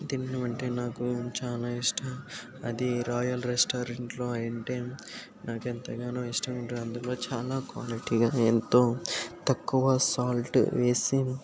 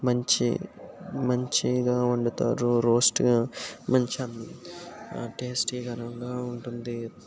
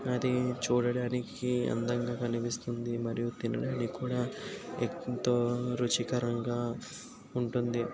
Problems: background sounds at intervals